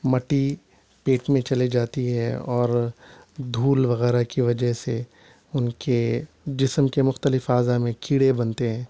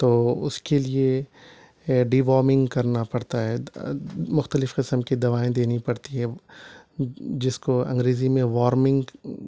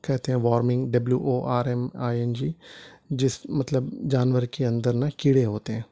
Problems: none marked